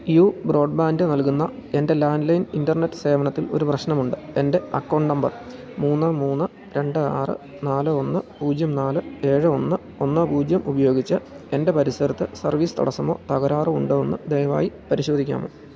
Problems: none marked